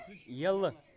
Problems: constant background noise